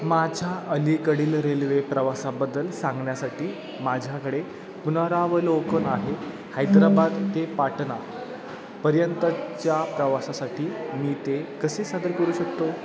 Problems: constant background noise